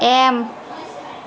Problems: constant background noise